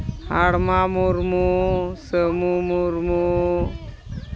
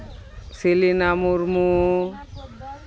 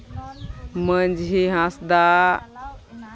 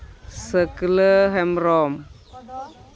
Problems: constant background noise, continuous background conversations